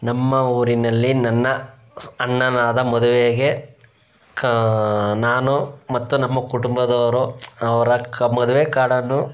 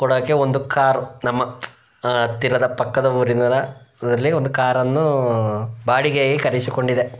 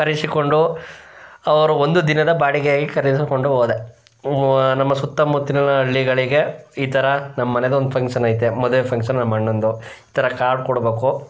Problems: background sounds at intervals